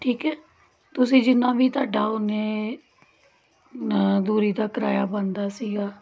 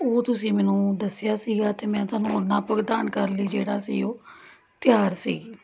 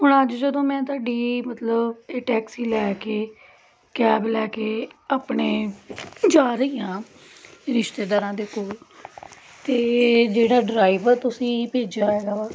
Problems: none marked